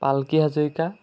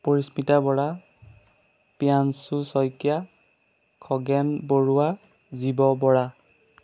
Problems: none marked